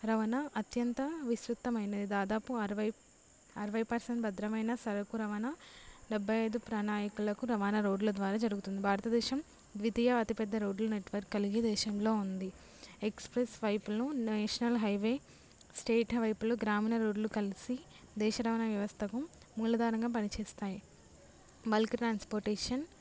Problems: low volume